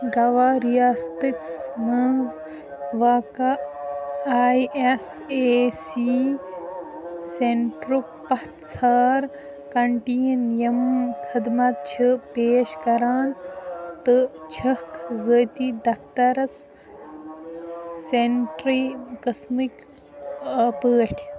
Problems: constant background noise, continuous background conversations